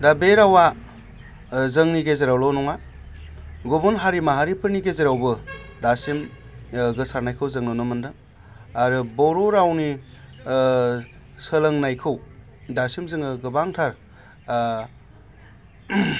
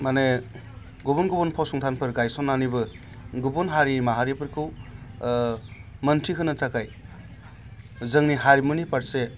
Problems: constant background noise